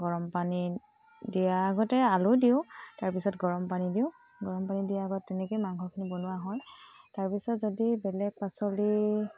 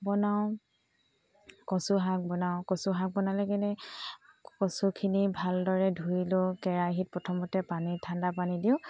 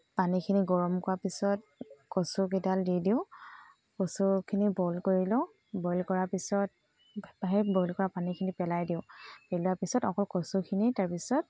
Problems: background sounds at intervals